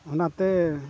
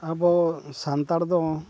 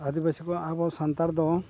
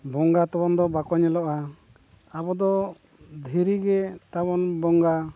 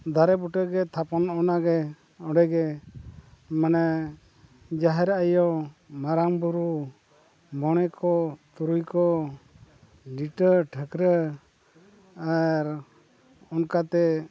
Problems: constant background noise